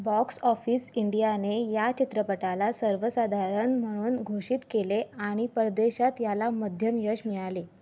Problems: background sounds at intervals